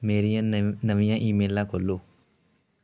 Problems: none marked